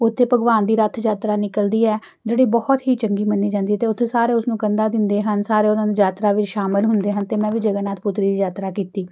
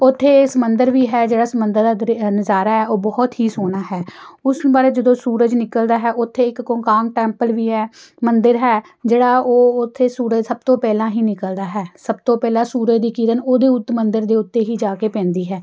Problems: background sounds at intervals